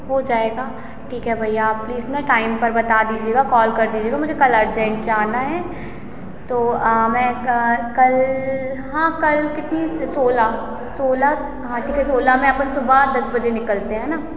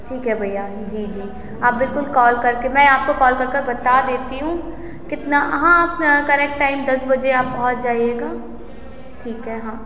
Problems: constant background noise, echo